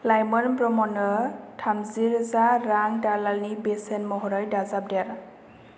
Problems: constant background noise